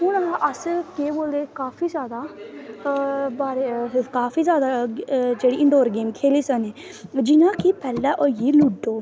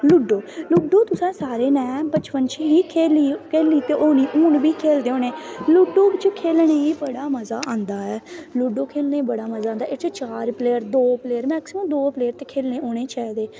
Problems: constant background noise